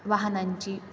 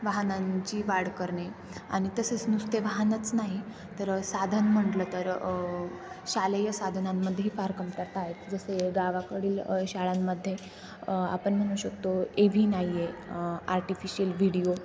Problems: constant background noise